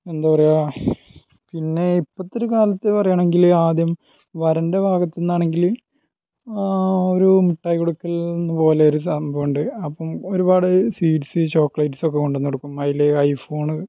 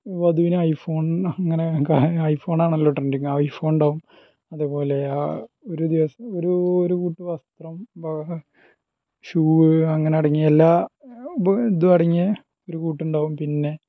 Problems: low volume